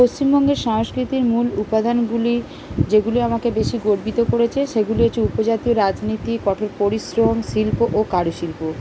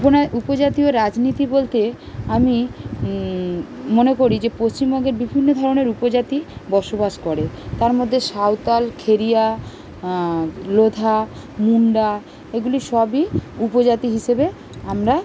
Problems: constant background noise